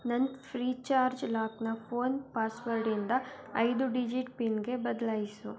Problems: continuous background conversations